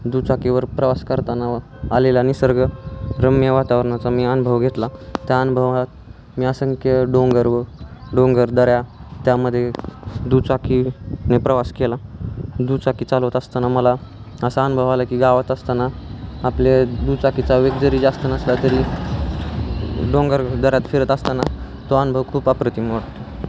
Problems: constant background noise